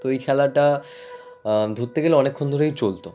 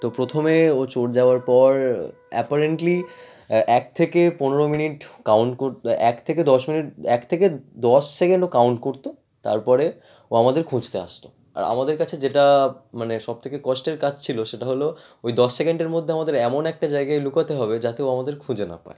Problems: constant background noise